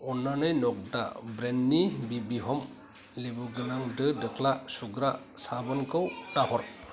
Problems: constant background noise